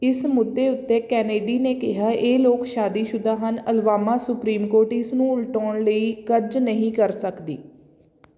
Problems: none marked